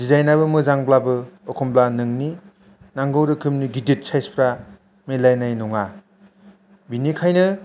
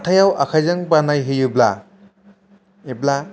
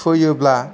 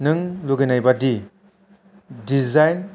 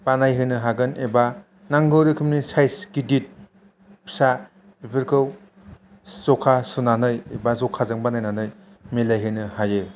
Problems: none marked